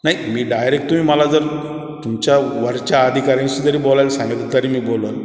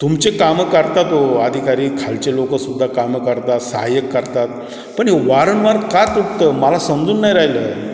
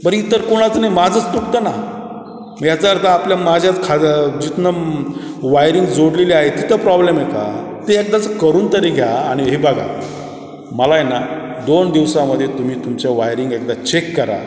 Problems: none marked